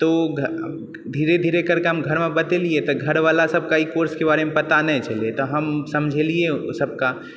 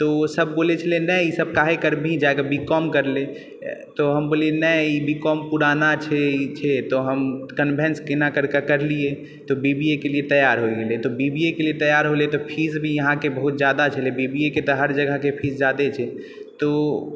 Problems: none marked